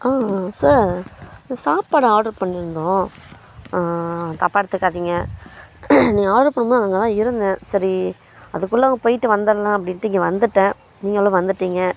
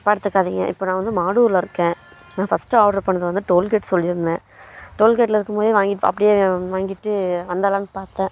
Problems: constant background noise